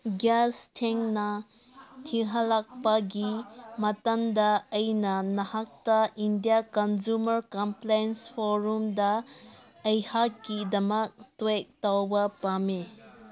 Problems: background conversations at intervals